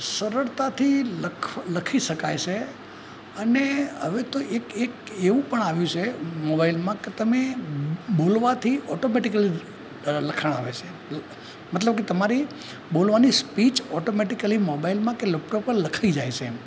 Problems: constant background noise